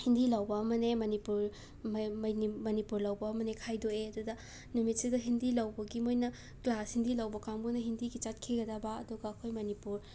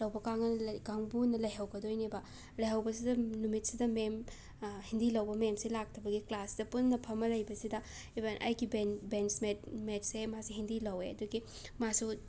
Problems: background sounds at intervals